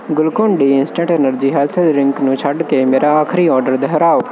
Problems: none marked